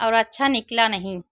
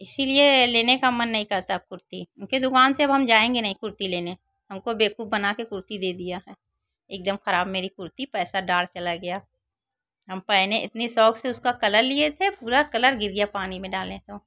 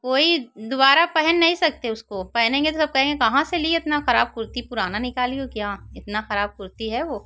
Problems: constant background noise